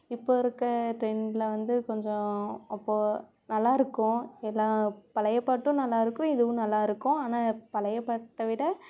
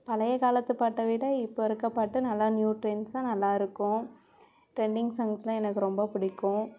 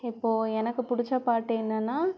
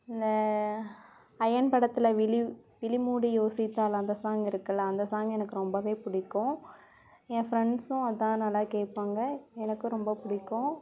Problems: background sounds at intervals